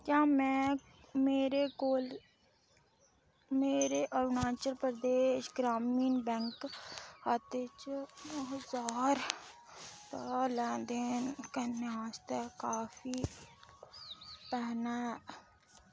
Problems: background sounds at intervals